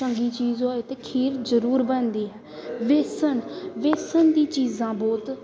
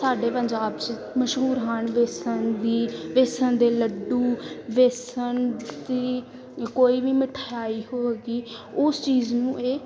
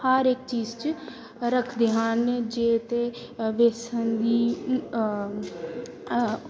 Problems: background sounds at intervals, background conversations at intervals